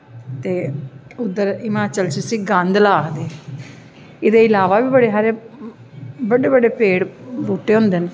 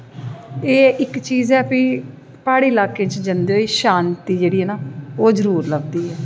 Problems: echo